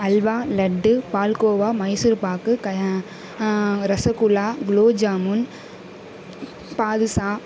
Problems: constant background noise